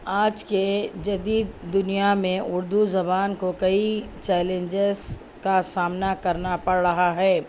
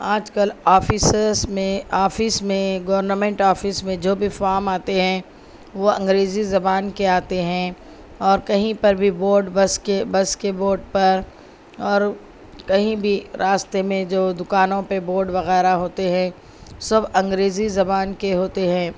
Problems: none marked